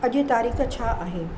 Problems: constant background noise, low volume